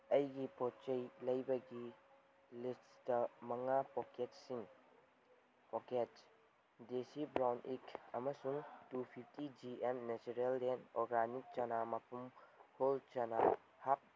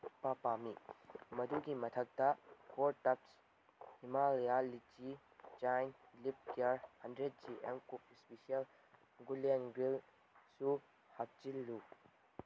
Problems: background sounds at intervals